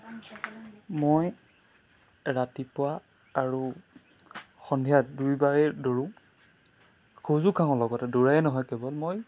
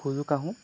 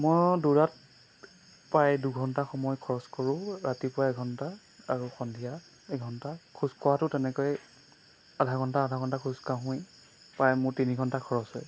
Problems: constant background noise